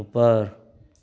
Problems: constant background noise, echo